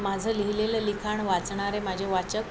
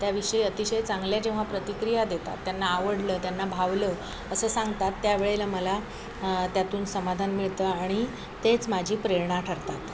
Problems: constant background noise, continuous background conversations